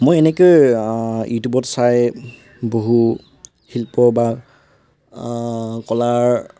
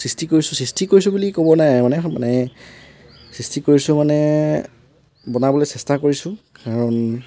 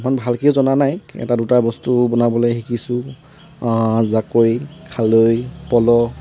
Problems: constant background noise